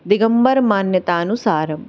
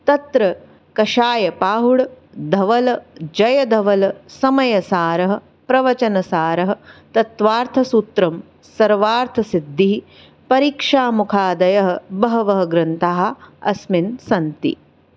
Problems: none marked